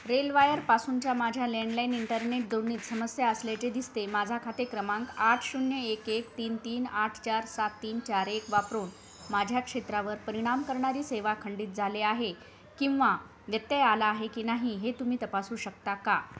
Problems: constant background noise